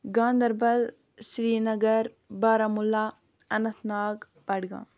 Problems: background sounds at intervals